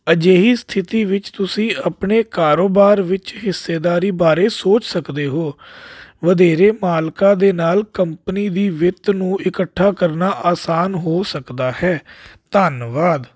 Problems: none marked